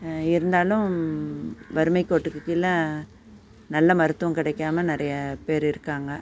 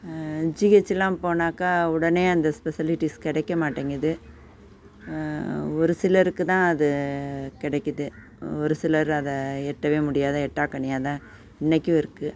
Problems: background sounds at intervals